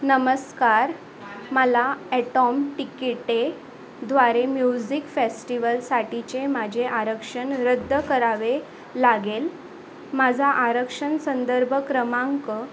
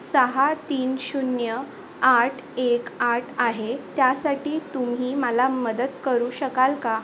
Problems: constant background noise